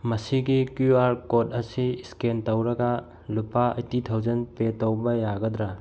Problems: none marked